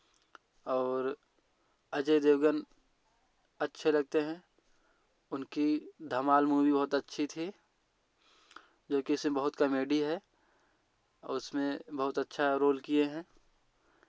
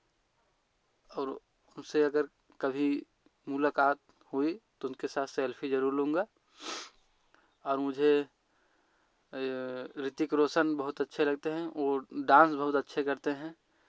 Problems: background sounds at intervals